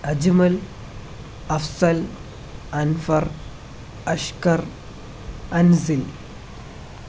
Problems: constant background noise